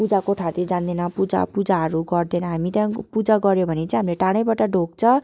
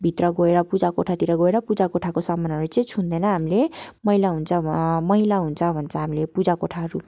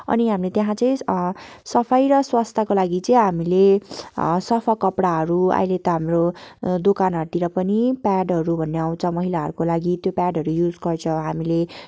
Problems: constant background noise